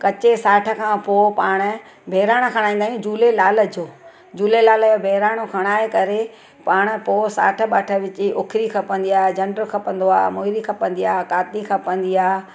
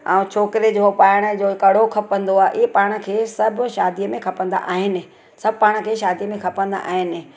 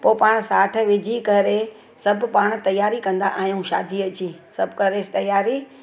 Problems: none marked